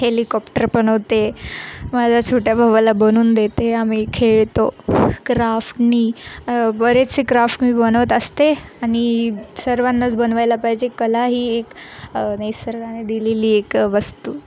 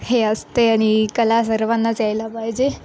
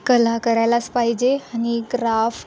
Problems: none marked